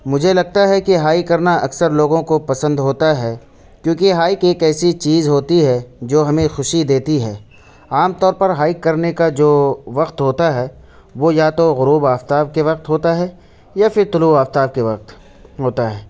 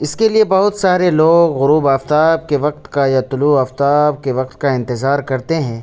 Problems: background sounds at intervals